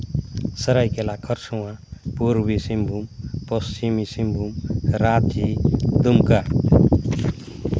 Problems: constant background noise